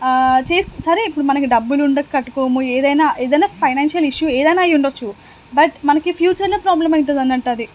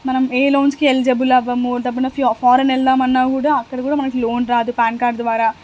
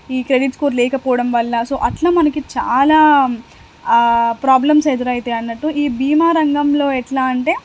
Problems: constant background noise